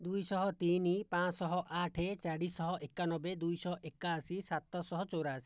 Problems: low volume